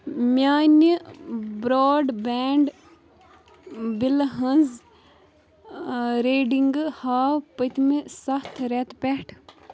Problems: none marked